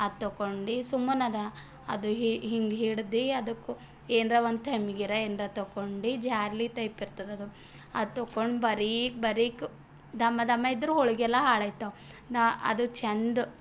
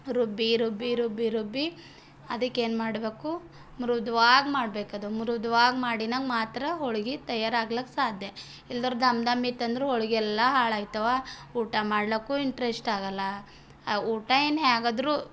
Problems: background sounds at intervals